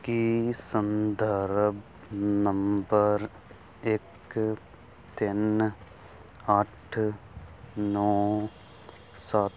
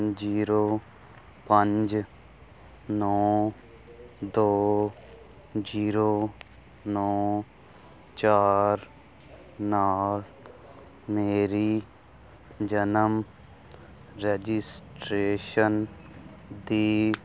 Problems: none marked